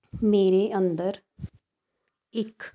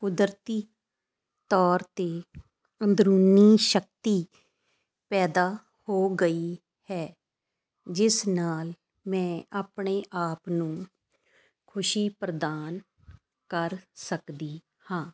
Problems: constant background noise